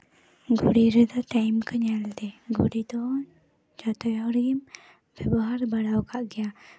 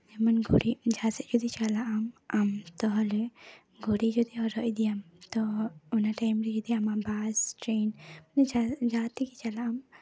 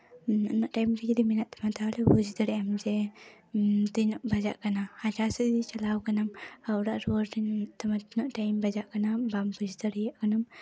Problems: background sounds at intervals, background conversations at intervals